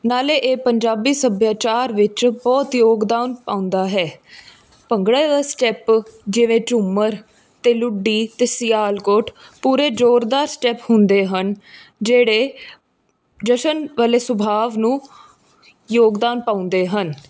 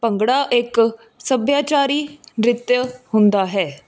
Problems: background sounds at intervals